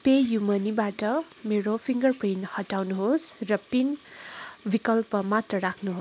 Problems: none marked